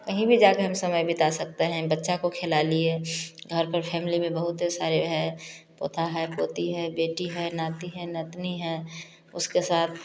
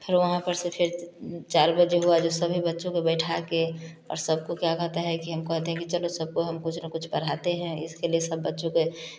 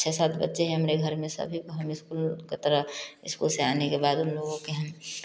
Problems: none marked